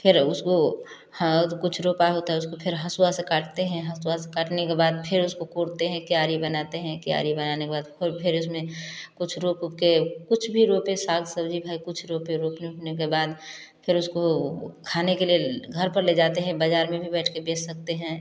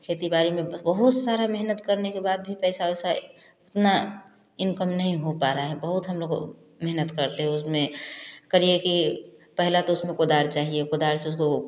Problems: background sounds at intervals, continuous background conversations